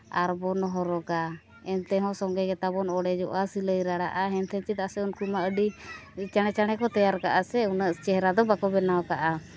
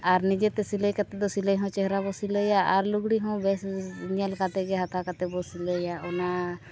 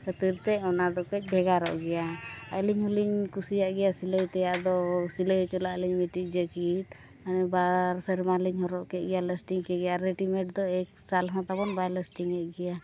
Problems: constant background noise, continuous background conversations, low volume